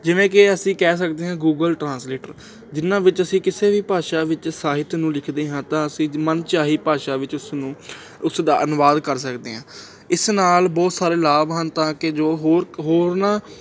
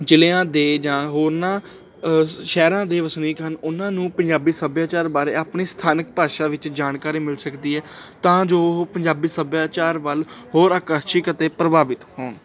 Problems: none marked